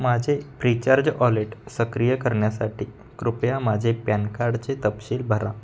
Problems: constant background noise, background conversations at intervals